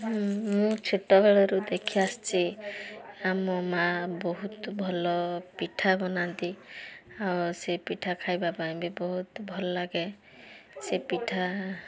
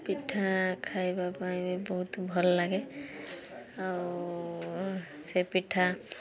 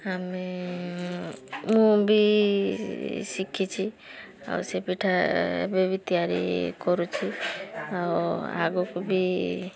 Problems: constant background noise, continuous background conversations